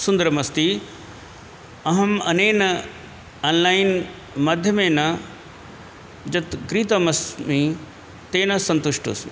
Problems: constant background noise